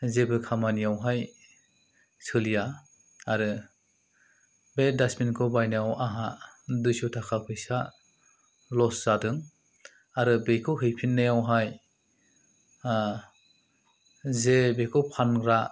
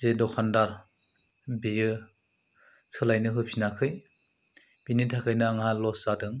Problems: none marked